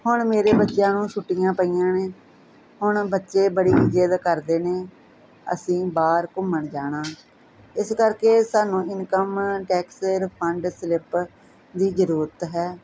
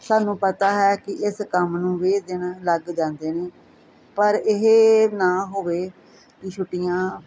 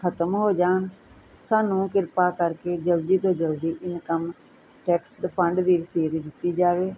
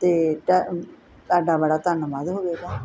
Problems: constant background noise